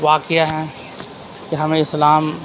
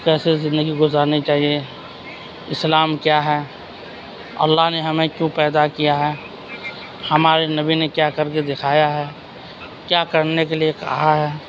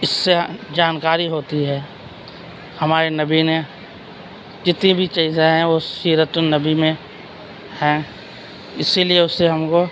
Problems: constant background noise, continuous background conversations